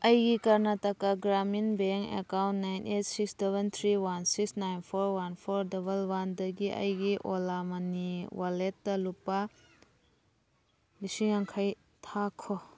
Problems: background sounds at intervals, background conversations at intervals